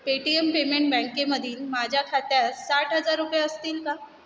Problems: constant background noise